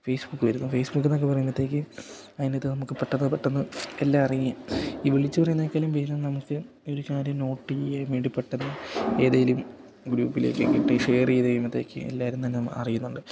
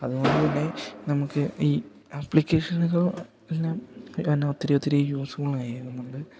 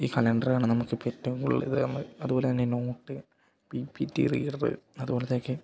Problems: none marked